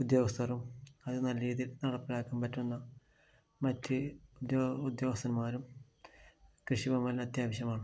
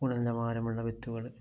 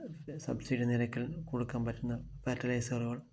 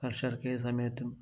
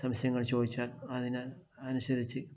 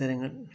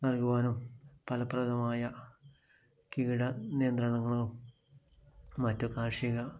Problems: low volume